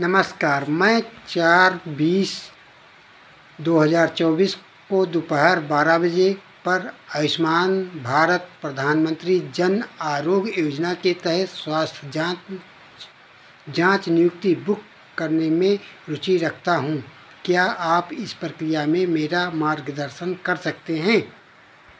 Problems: constant background noise